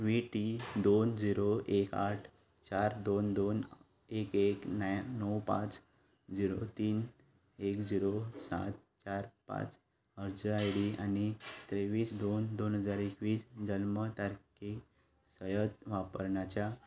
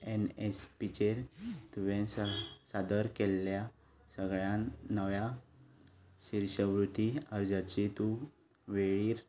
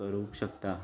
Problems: background sounds at intervals